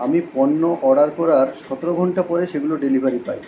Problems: constant background noise